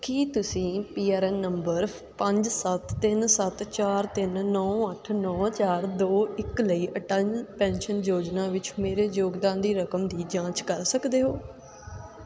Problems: background sounds at intervals, continuous background conversations